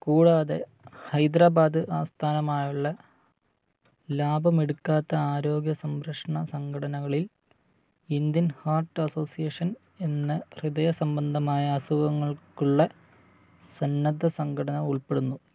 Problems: low volume